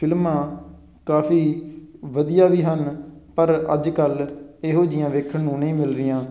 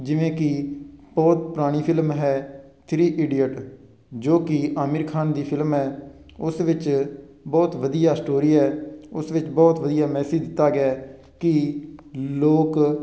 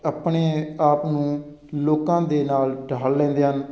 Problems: constant background noise